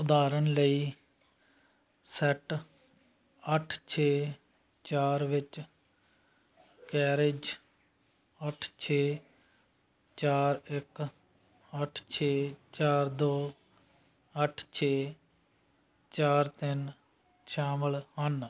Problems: background sounds at intervals